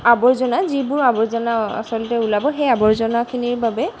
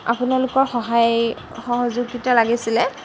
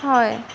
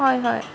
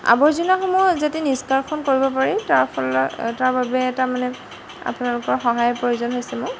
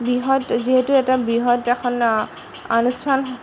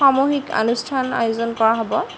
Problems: background sounds at intervals